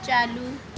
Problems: none marked